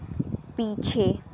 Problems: background sounds at intervals